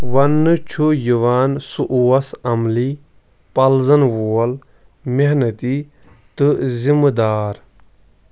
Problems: none marked